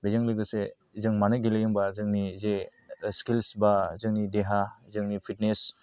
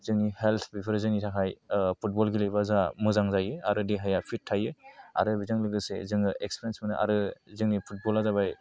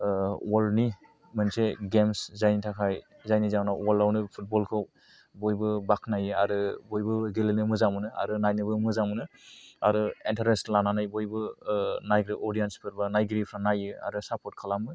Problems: none marked